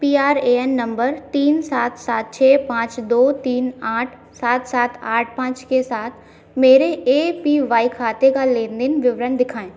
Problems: background sounds at intervals